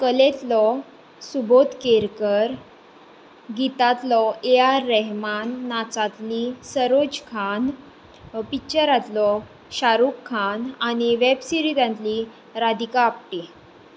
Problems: background sounds at intervals